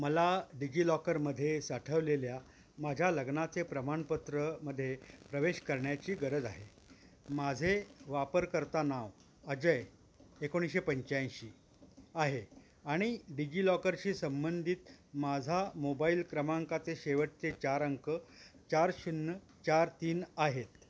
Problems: background sounds at intervals